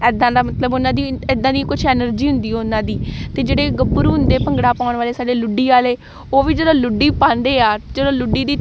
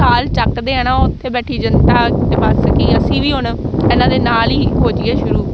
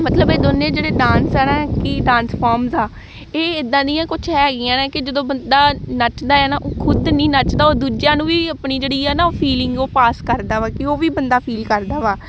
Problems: background sounds at intervals